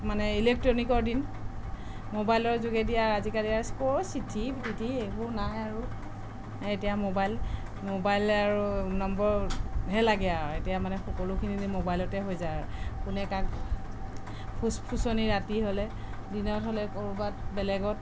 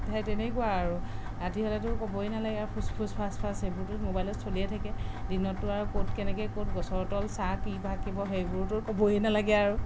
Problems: background sounds at intervals, background conversations at intervals